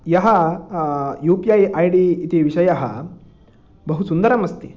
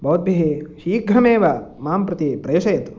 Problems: none marked